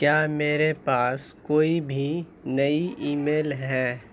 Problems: constant background noise